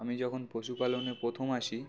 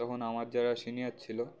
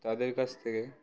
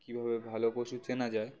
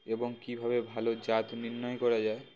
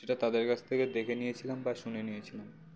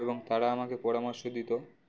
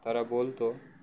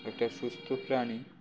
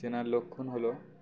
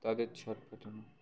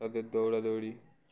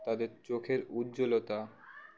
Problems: none marked